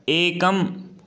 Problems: none marked